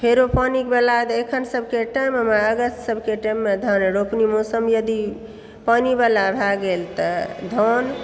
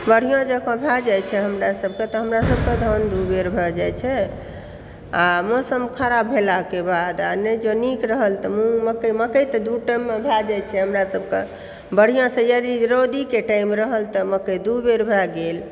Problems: background sounds at intervals